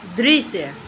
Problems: constant background noise